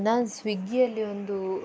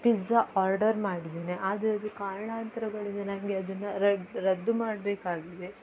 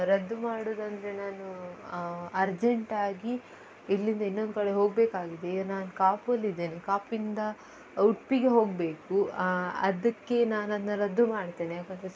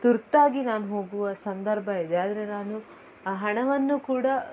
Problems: background sounds at intervals